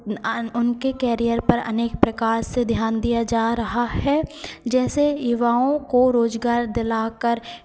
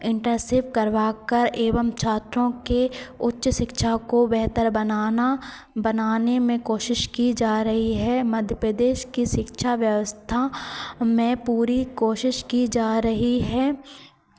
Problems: constant background noise, continuous background conversations